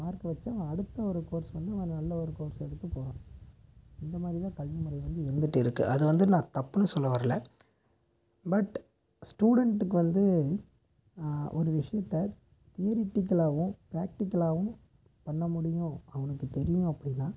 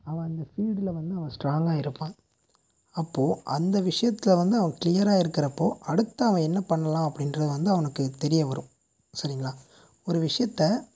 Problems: background sounds at intervals, low volume